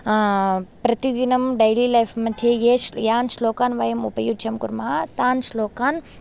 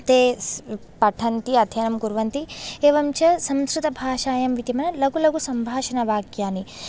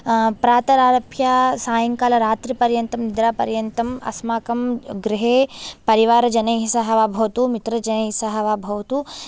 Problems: none marked